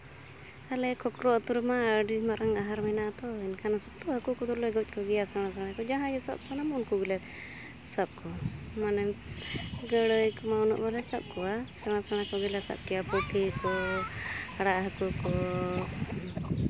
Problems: constant background noise